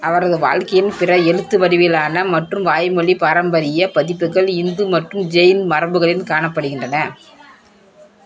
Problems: background conversations at intervals